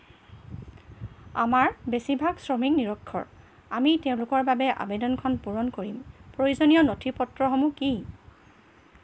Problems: background sounds at intervals